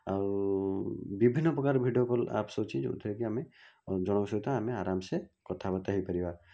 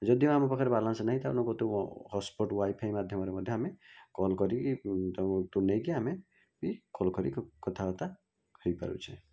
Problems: low volume